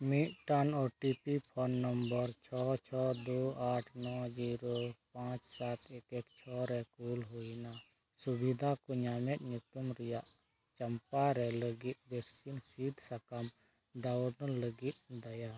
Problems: constant background noise, low volume